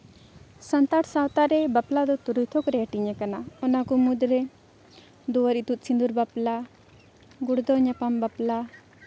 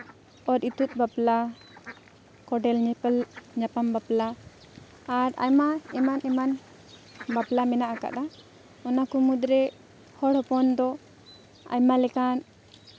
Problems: background sounds at intervals, background conversations at intervals